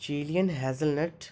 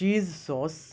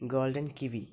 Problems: none marked